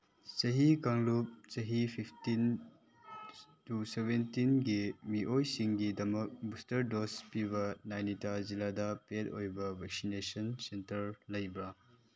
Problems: none marked